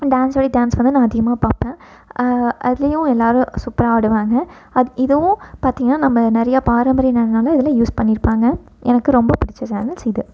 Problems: none marked